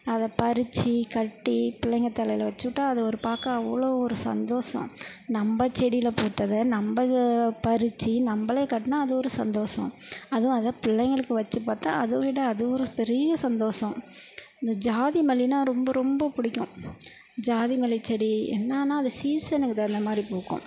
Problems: none marked